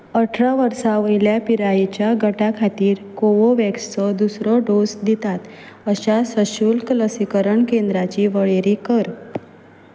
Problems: background sounds at intervals